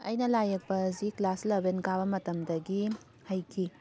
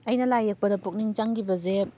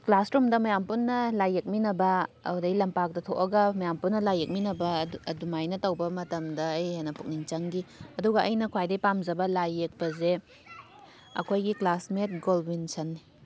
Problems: constant background noise